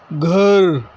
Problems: none marked